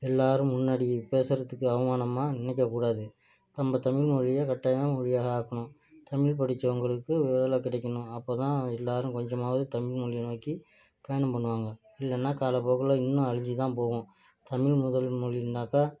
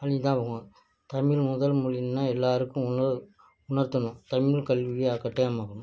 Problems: low volume